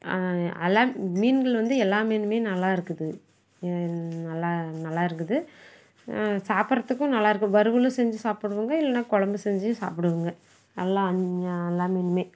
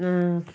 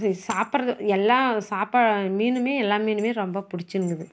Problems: background sounds at intervals